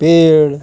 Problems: constant background noise